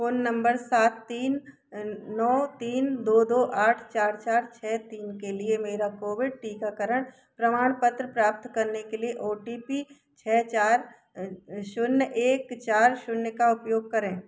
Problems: none marked